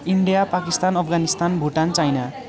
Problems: continuous background conversations